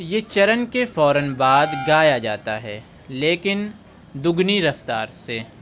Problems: none marked